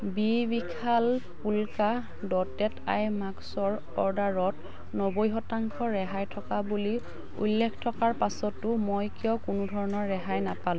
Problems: background sounds at intervals, background conversations at intervals